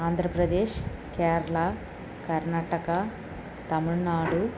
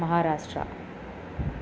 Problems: none marked